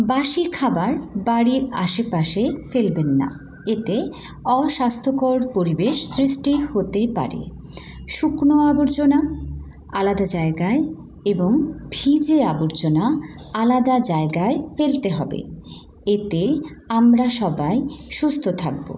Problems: background sounds at intervals